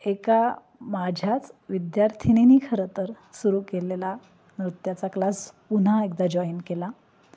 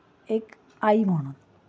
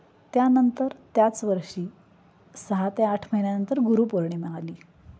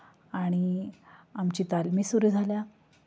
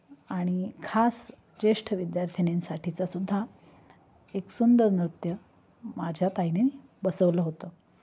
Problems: background sounds at intervals